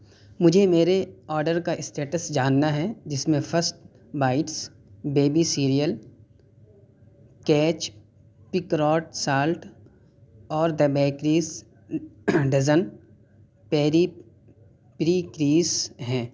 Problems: background conversations at intervals